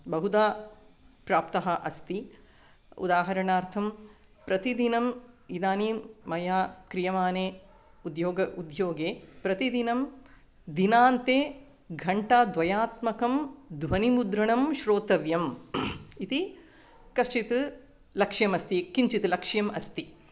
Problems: none marked